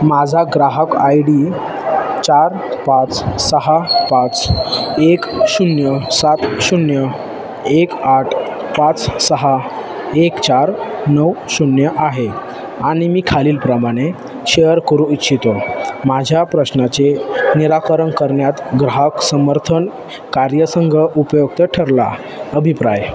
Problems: constant background noise, background conversations at intervals